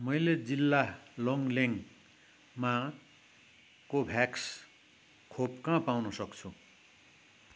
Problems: none marked